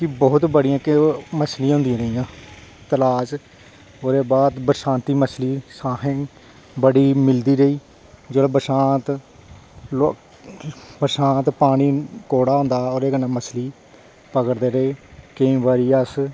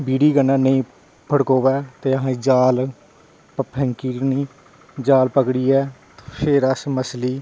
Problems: background sounds at intervals